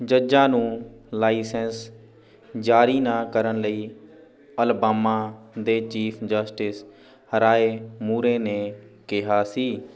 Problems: background conversations at intervals